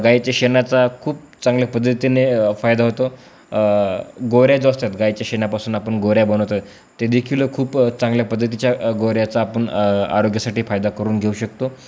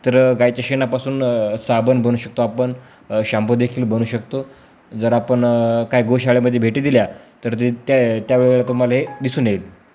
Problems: none marked